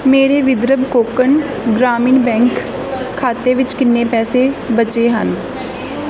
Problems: none marked